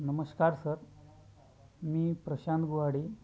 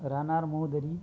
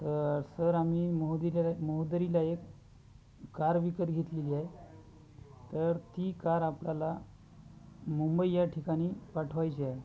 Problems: constant background noise, continuous background conversations